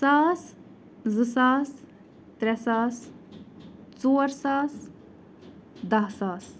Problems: background sounds at intervals